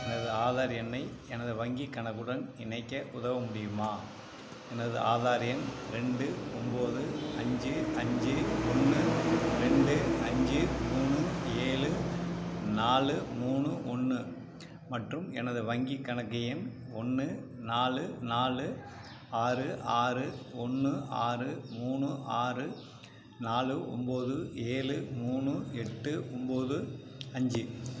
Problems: none marked